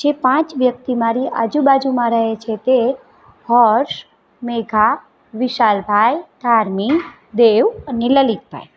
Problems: background sounds at intervals